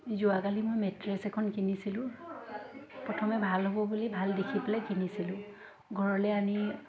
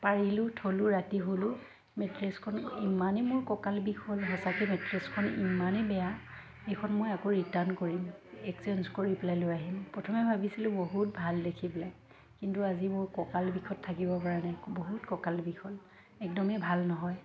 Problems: constant background noise, background conversations at intervals